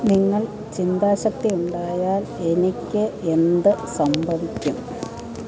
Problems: continuous background conversations, low volume